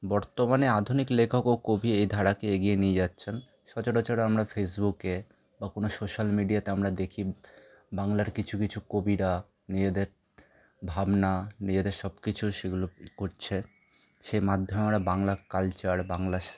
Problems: none marked